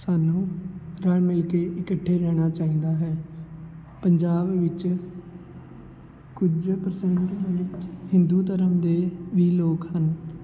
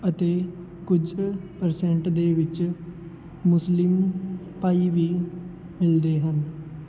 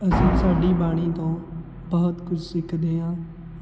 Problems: constant background noise